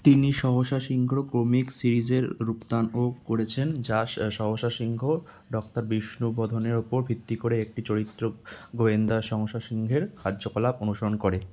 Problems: constant background noise